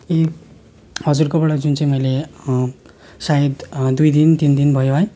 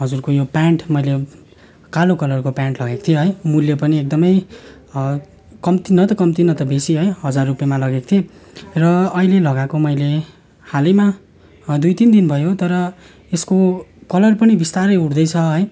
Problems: constant background noise, continuous background conversations